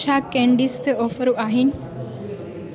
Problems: constant background noise